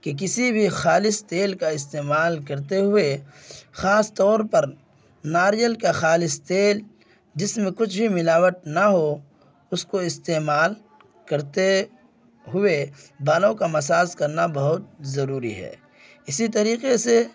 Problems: constant background noise